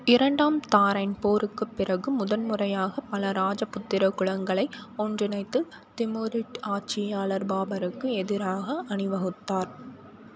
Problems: none marked